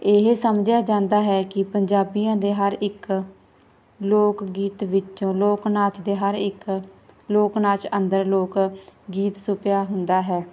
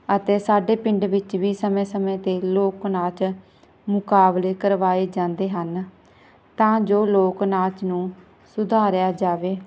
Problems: none marked